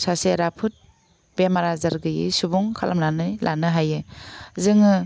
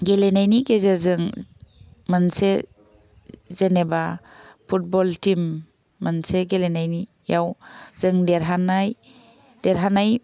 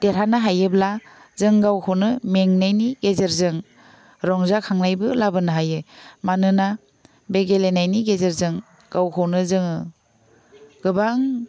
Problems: none marked